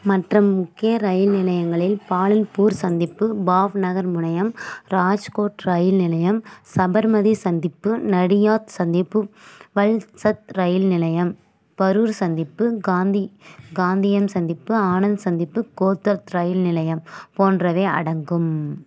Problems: constant background noise